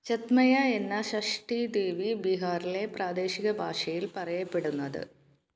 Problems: none marked